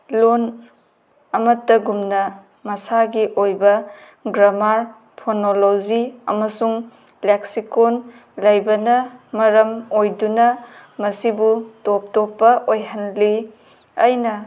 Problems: background sounds at intervals